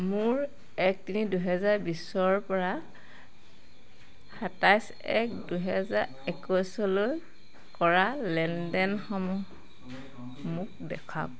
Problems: constant background noise